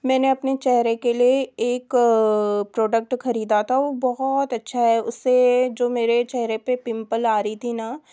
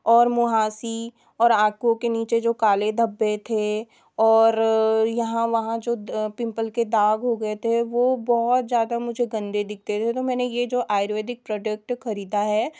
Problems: none marked